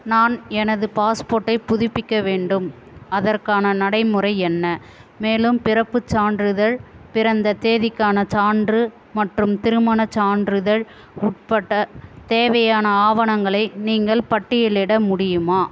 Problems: none marked